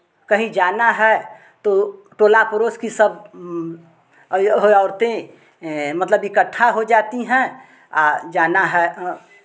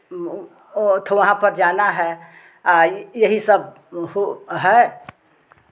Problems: background sounds at intervals, background conversations at intervals